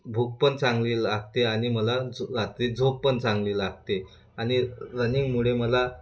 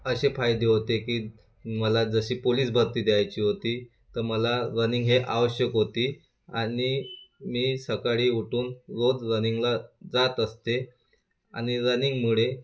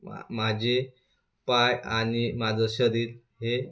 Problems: constant background noise